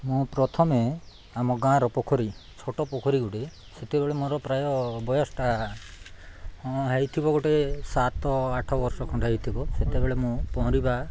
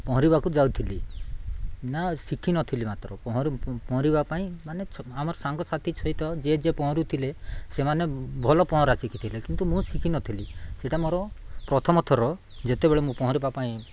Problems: none marked